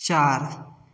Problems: none marked